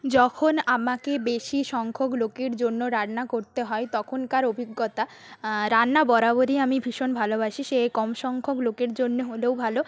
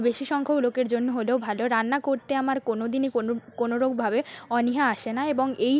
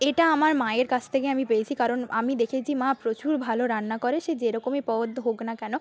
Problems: constant background noise